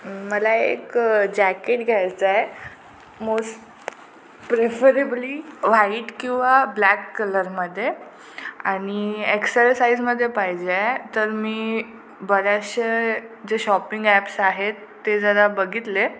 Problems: constant background noise